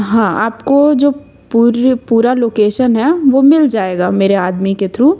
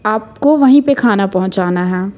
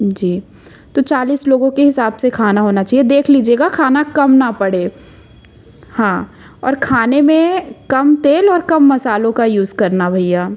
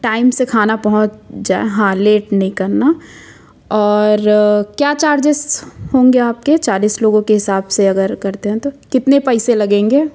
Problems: constant background noise